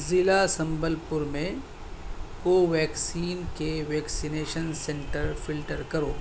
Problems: constant background noise, background conversations at intervals